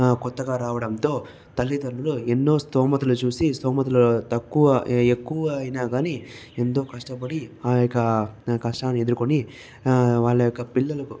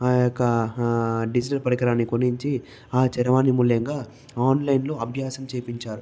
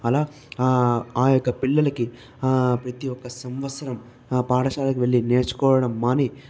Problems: background conversations at intervals